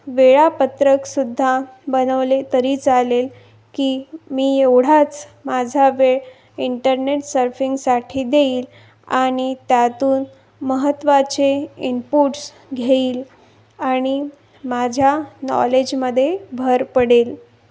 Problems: background sounds at intervals